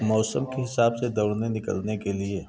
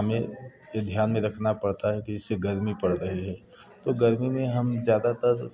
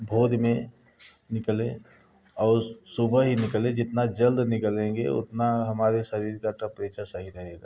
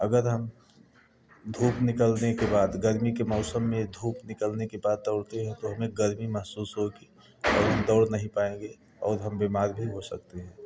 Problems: none marked